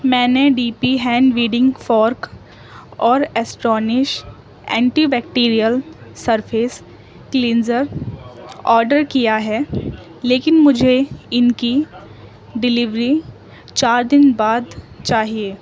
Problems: constant background noise, background conversations at intervals